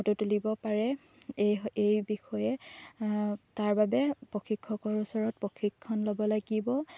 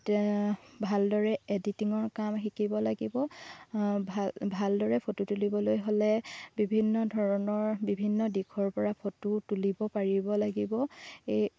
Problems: constant background noise